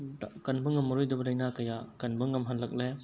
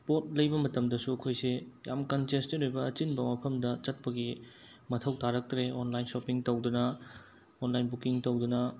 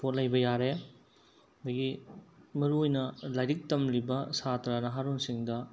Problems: constant background noise